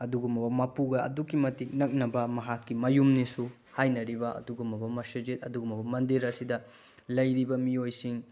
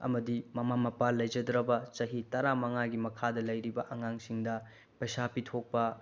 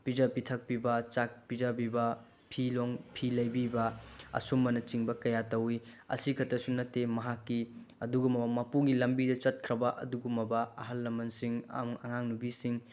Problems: low volume